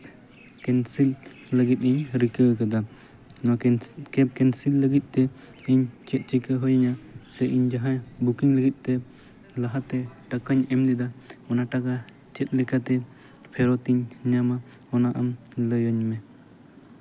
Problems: constant background noise